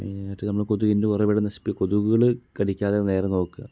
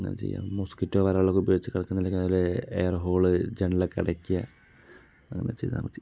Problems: none marked